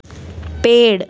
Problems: background sounds at intervals